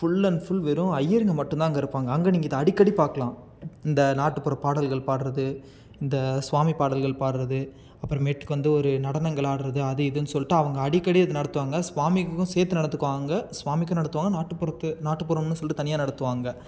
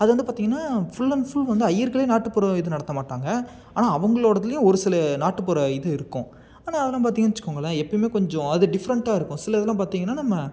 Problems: none marked